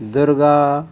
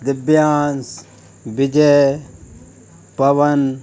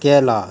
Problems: none marked